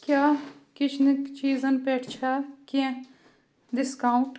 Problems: background sounds at intervals